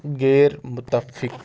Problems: constant background noise